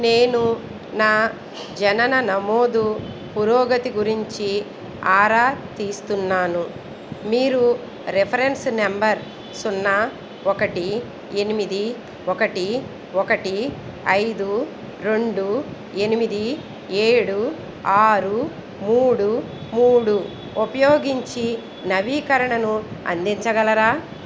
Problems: none marked